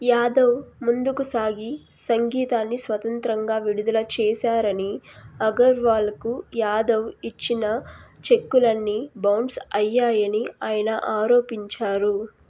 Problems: none marked